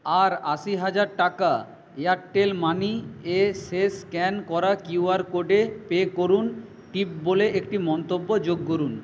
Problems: none marked